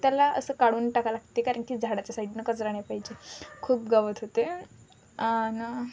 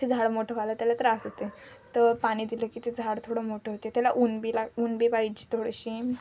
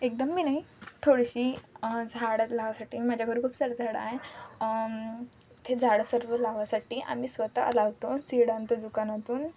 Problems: constant background noise